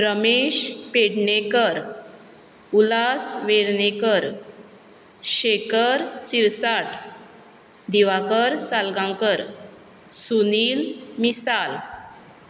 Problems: background sounds at intervals